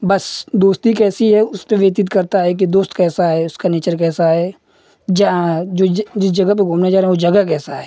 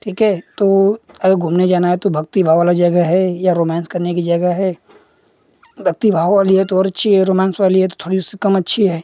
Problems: constant background noise